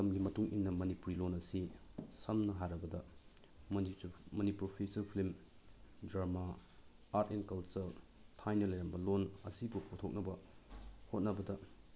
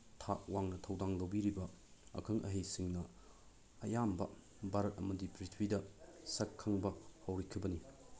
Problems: low volume